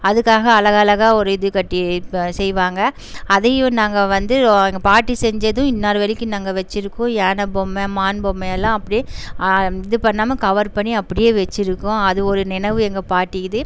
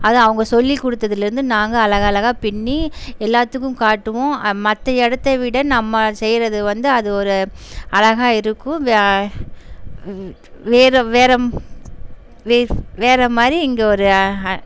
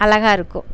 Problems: constant background noise